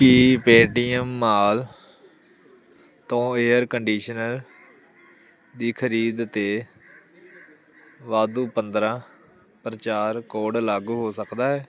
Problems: none marked